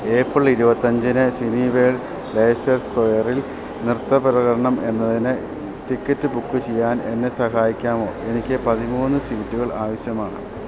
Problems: none marked